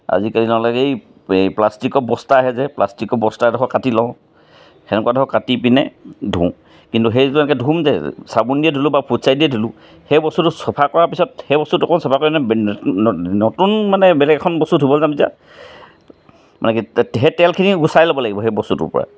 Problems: none marked